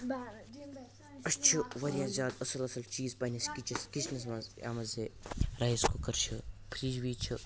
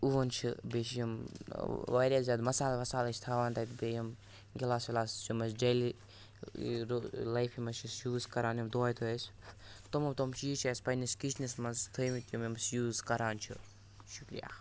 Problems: constant background noise, background conversations at intervals